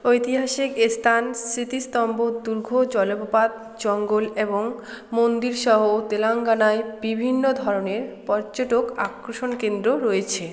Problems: constant background noise, background conversations at intervals